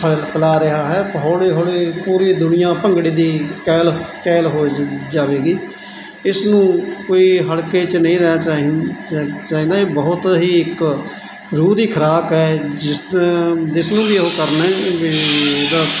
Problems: constant background noise